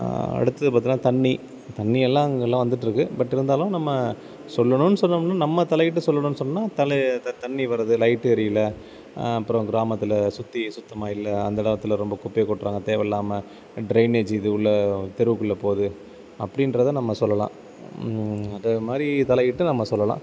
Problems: constant background noise